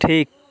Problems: none marked